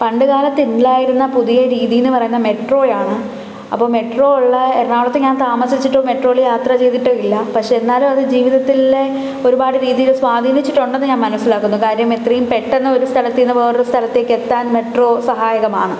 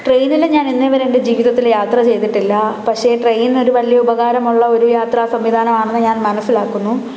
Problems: background sounds at intervals